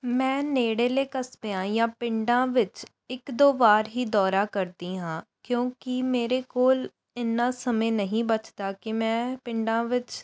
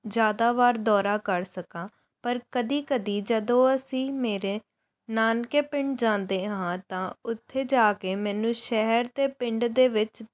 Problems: background sounds at intervals